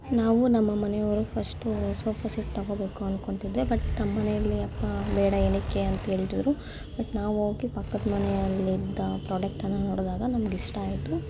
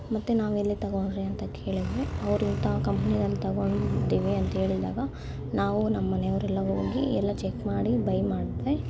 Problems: constant background noise